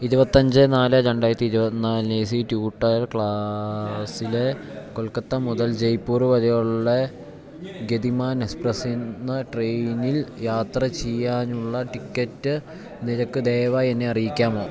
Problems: background conversations at intervals